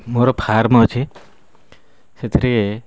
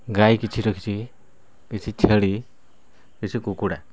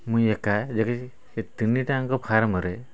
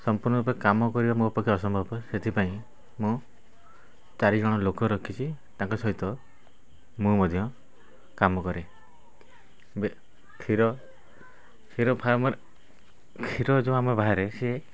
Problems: background conversations at intervals